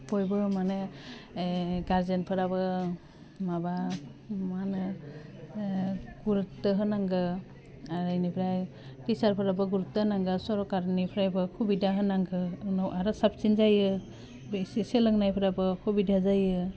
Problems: constant background noise